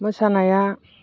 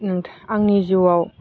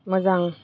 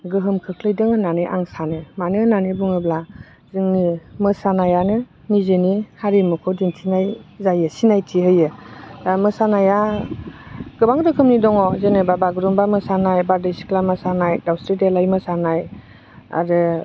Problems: none marked